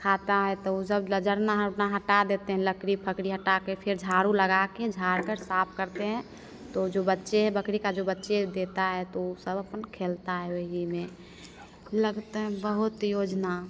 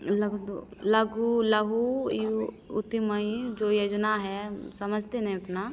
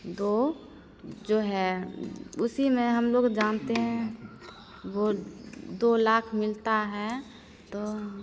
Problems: constant background noise